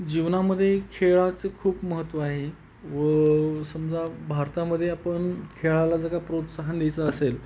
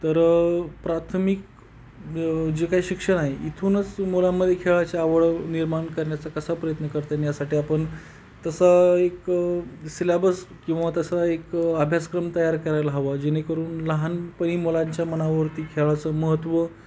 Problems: background sounds at intervals